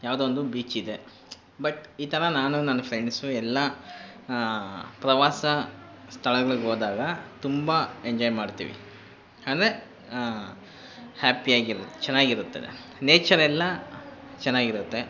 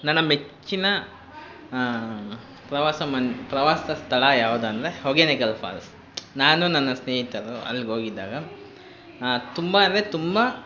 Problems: constant background noise